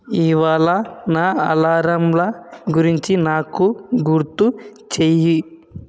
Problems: none marked